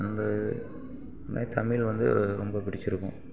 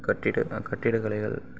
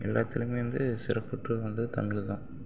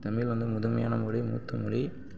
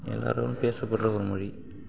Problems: background sounds at intervals